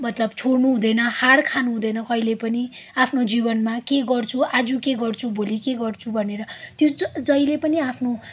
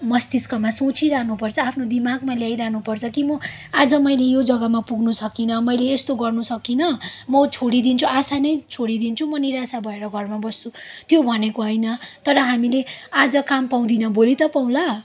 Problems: background sounds at intervals